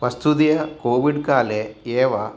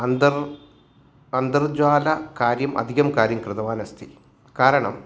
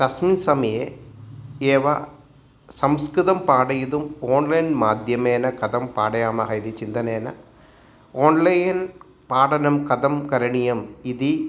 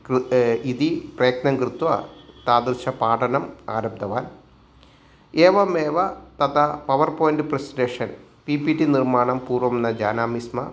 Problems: none marked